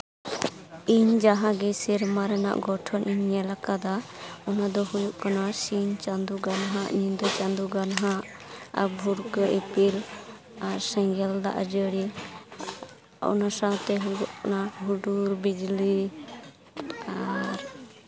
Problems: constant background noise, continuous background conversations